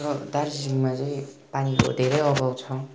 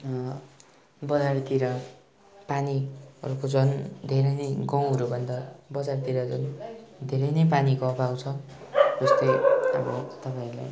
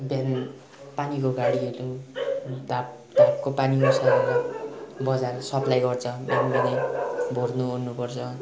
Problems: constant background noise